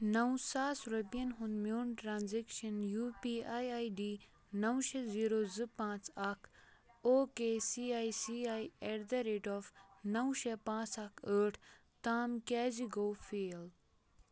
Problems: continuous background conversations